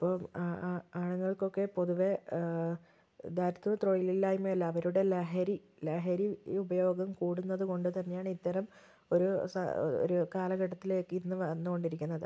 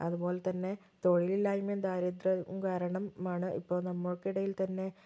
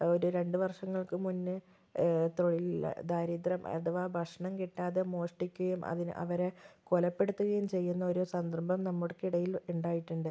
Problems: low volume